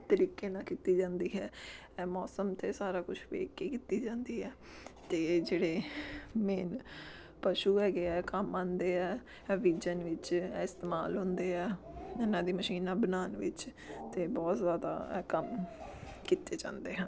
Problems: background sounds at intervals, background conversations at intervals